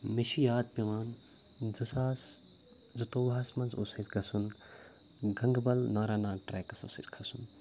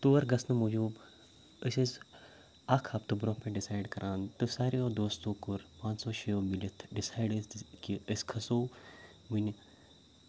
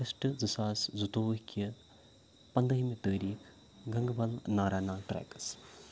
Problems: none marked